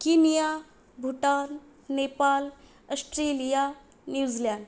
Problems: none marked